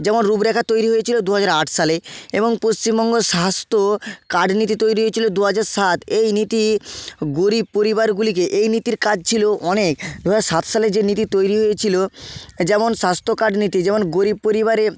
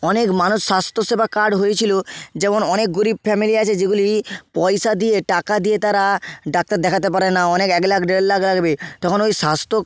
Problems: background sounds at intervals